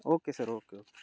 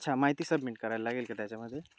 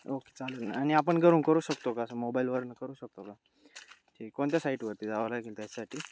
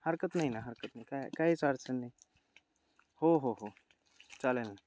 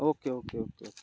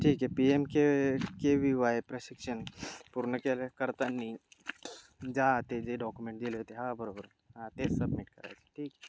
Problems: constant background noise, background conversations at intervals